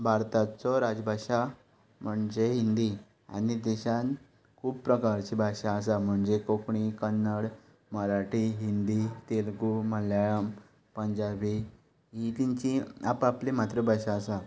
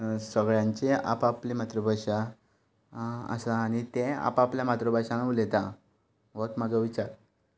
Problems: constant background noise